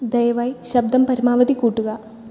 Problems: low volume